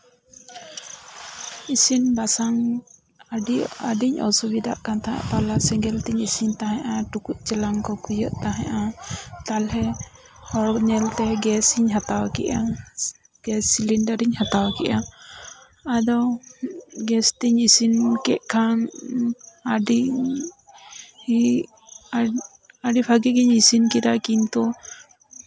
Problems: background sounds at intervals, background conversations at intervals